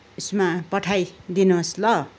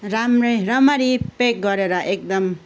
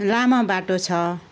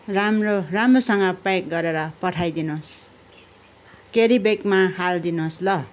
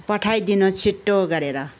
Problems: background sounds at intervals, continuous background conversations